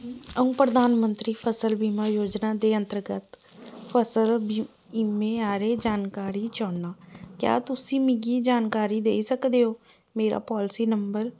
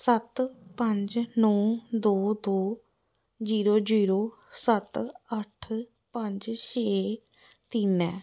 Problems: none marked